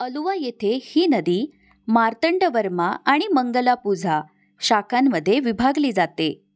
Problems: background sounds at intervals